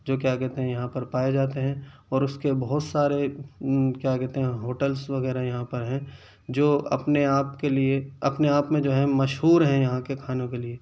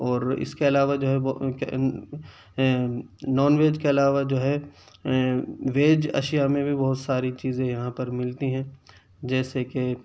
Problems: none marked